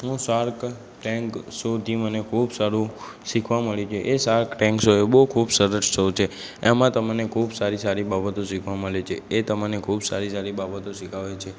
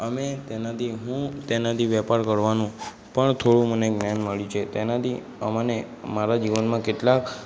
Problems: background sounds at intervals, background conversations at intervals